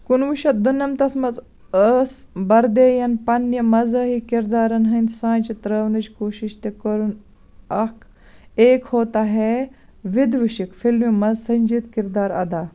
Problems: background sounds at intervals